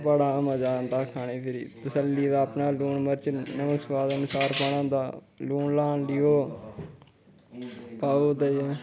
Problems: constant background noise